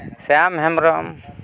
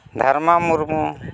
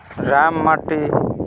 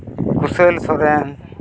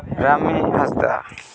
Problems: background conversations at intervals